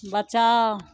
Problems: none marked